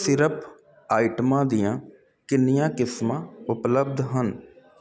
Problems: none marked